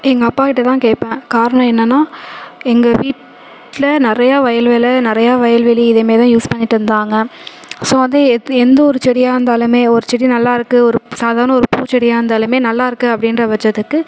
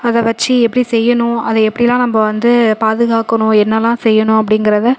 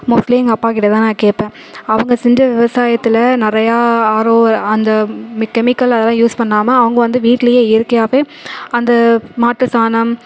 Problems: constant background noise